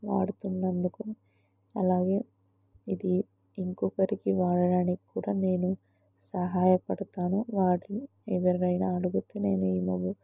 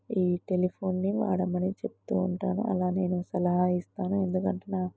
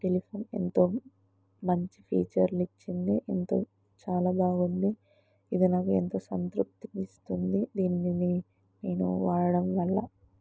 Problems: low volume